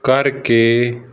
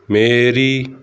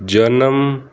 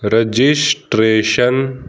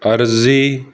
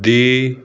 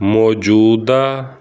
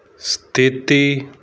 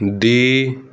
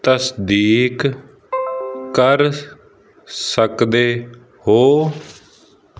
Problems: constant background noise